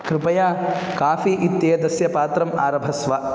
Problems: constant background noise